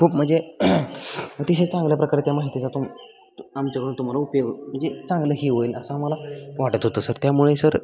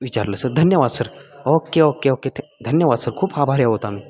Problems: constant background noise